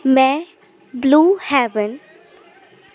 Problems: constant background noise